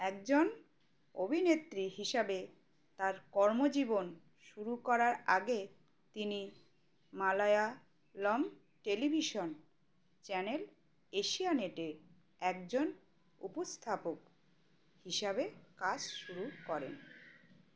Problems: constant background noise